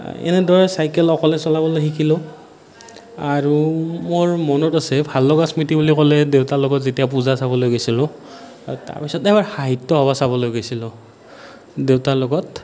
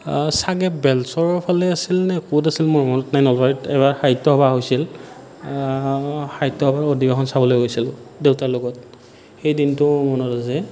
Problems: none marked